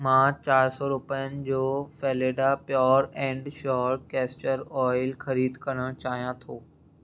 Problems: none marked